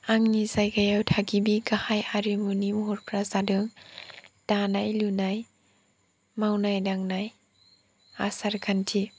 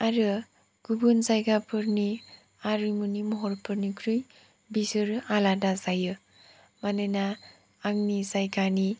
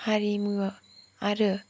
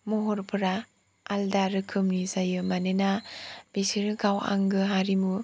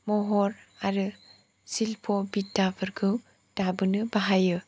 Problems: none marked